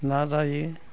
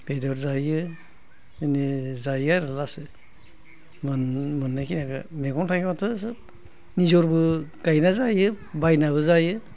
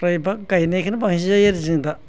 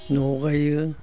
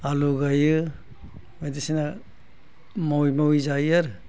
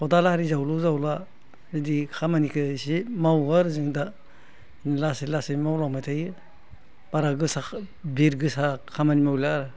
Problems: constant background noise